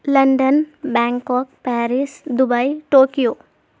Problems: none marked